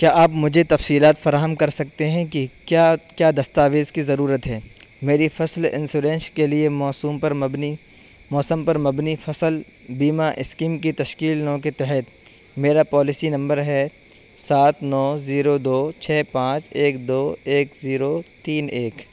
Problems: constant background noise